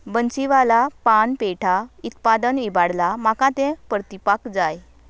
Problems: background sounds at intervals